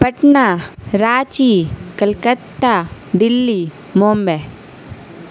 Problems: constant background noise